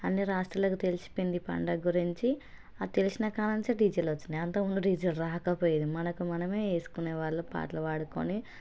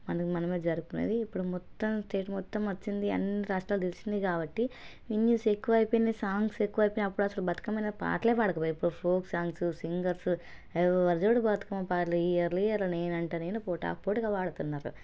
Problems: none marked